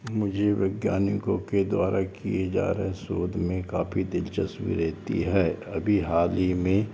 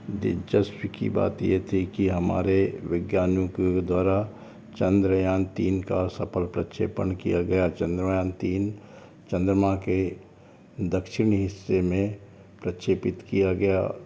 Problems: background sounds at intervals